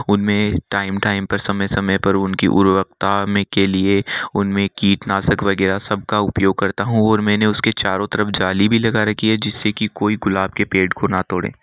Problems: none marked